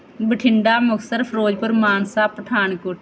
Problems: background sounds at intervals